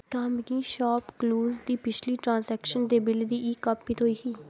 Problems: constant background noise, echo